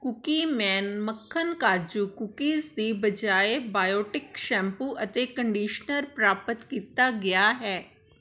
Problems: background conversations at intervals